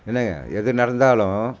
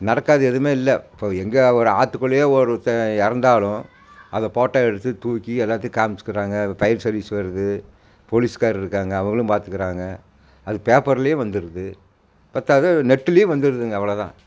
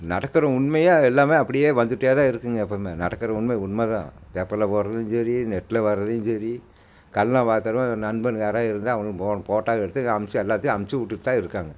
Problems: constant background noise